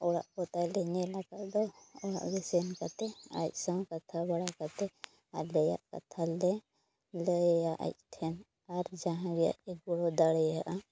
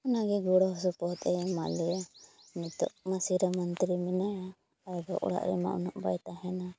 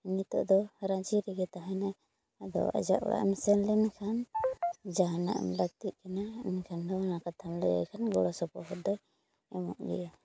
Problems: low volume